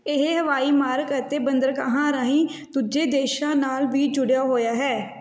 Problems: background sounds at intervals